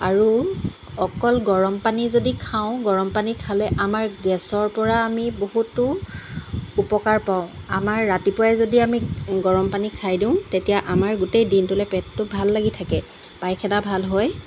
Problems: constant background noise